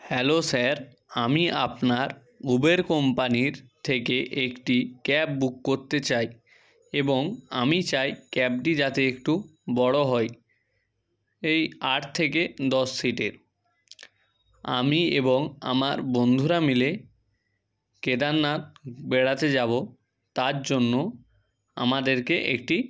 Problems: background sounds at intervals